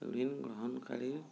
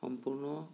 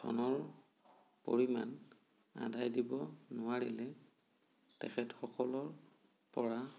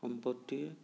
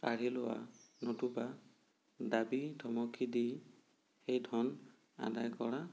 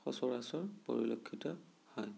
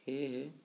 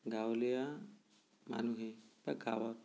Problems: low volume